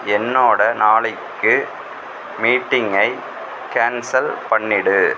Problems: constant background noise